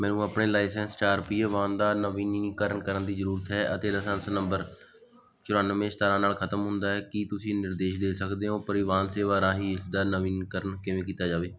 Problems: background sounds at intervals